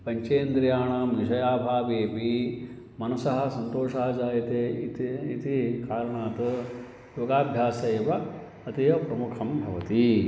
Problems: none marked